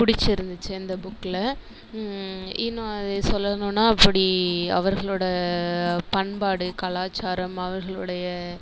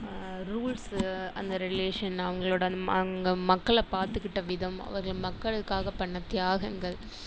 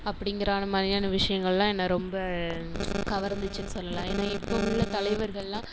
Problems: constant background noise